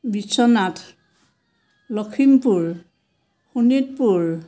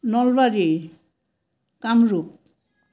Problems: none marked